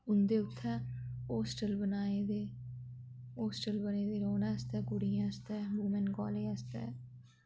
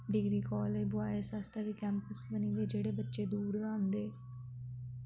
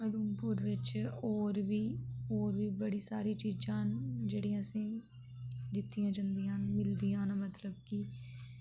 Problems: constant background noise, low volume